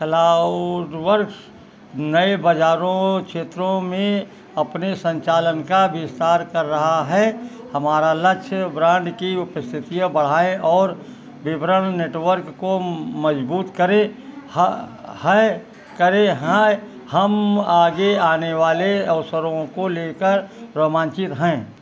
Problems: background sounds at intervals